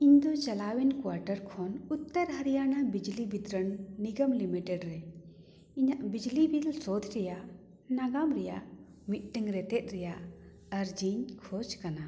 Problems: echo